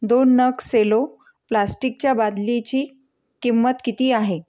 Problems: none marked